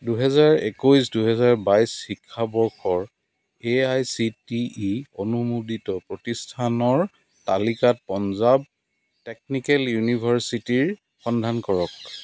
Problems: none marked